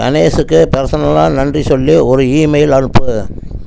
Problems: constant background noise